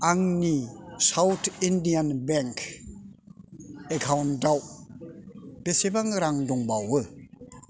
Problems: none marked